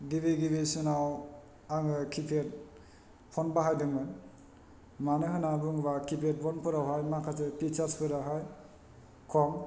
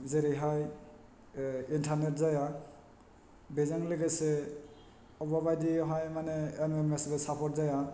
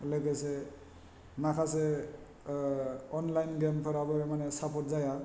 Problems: none marked